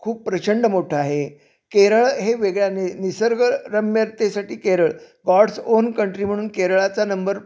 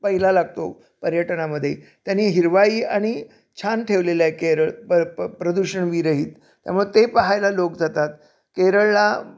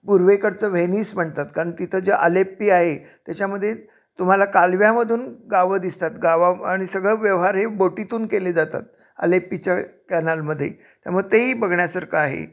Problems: none marked